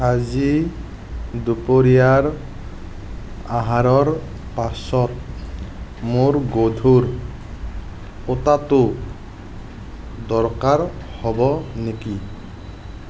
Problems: constant background noise